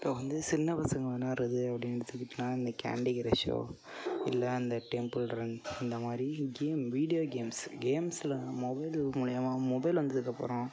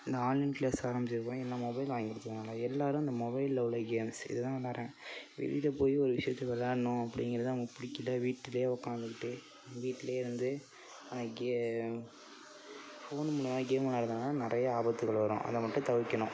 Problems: background sounds at intervals